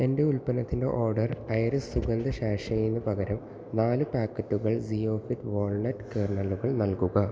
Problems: constant background noise, low volume